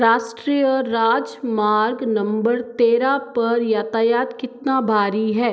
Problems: echo